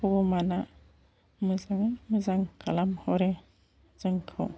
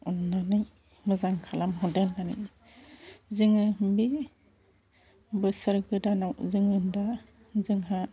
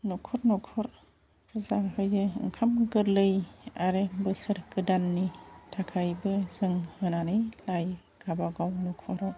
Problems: constant background noise